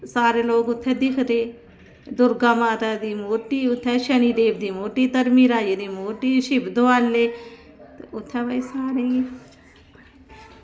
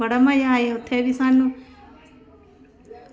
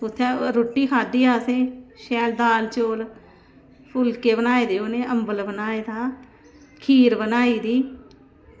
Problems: constant background noise